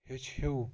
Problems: background sounds at intervals